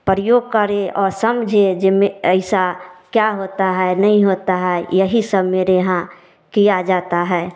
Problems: none marked